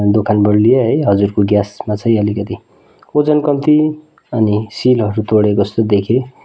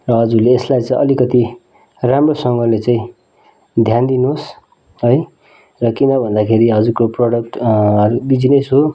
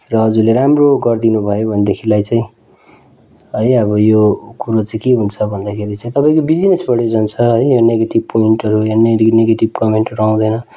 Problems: background sounds at intervals